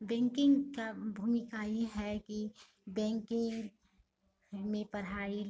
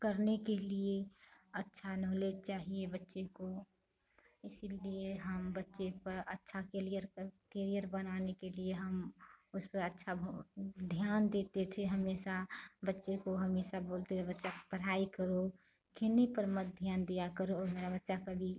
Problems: constant background noise, background conversations at intervals